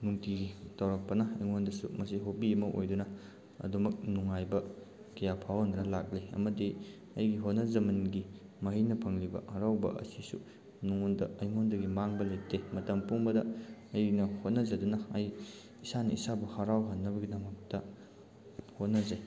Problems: background sounds at intervals